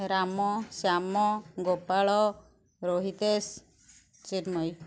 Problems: background sounds at intervals